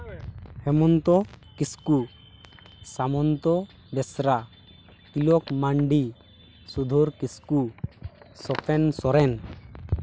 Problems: none marked